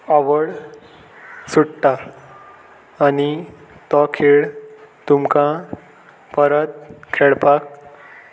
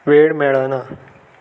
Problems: constant background noise